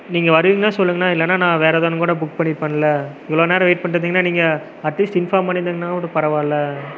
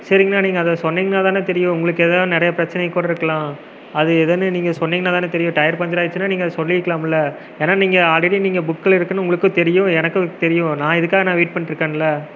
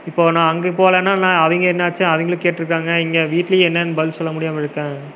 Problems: none marked